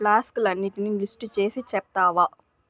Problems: constant background noise